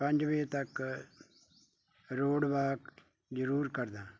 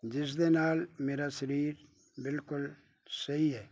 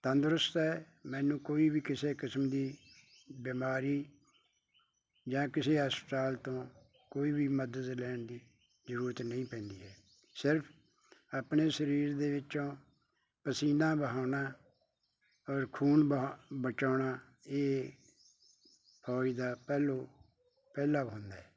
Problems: none marked